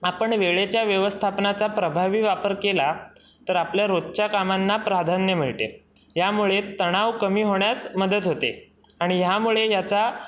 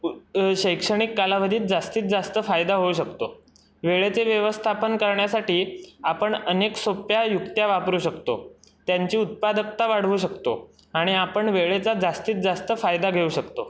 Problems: none marked